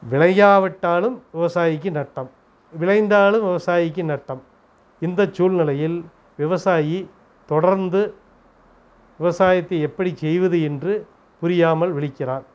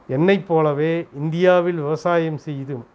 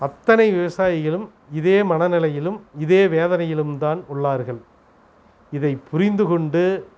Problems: background conversations at intervals